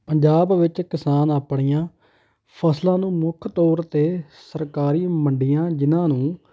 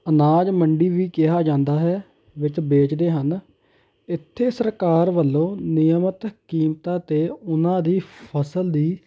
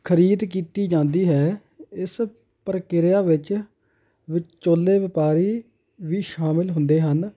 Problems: none marked